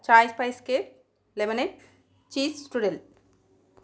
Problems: background sounds at intervals